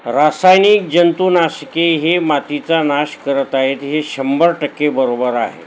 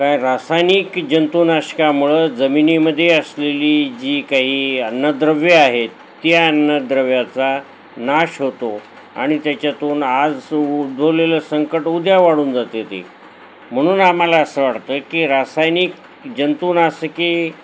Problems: none marked